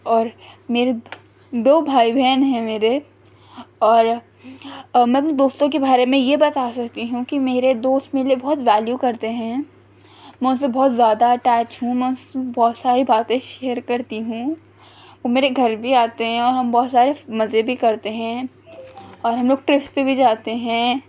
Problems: none marked